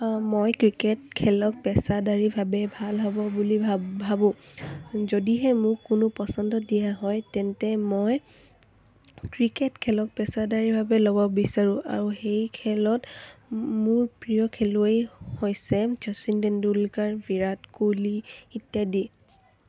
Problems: none marked